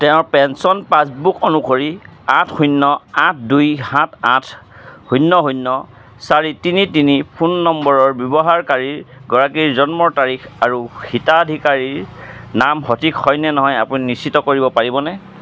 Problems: constant background noise